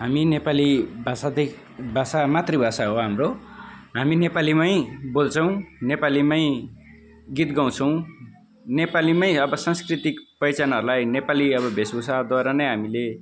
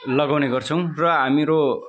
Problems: none marked